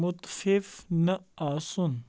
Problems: background sounds at intervals